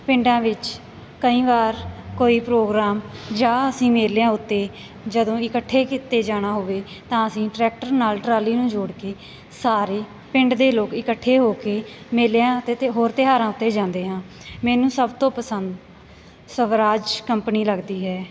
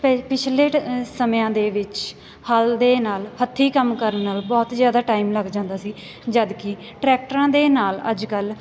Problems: constant background noise